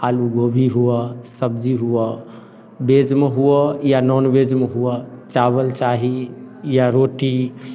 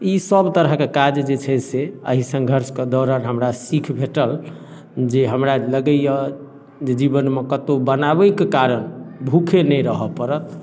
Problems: none marked